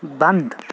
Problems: constant background noise